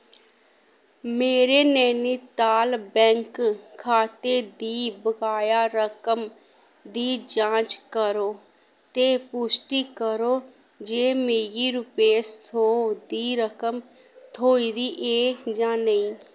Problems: none marked